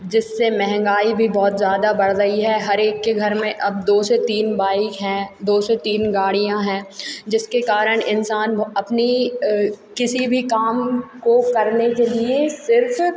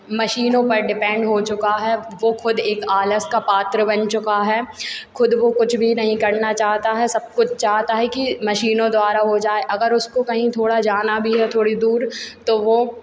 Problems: constant background noise